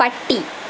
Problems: constant background noise